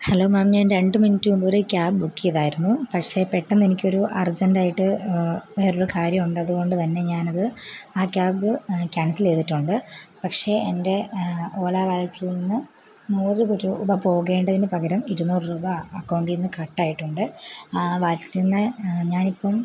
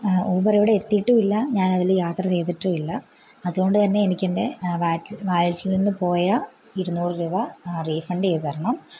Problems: low volume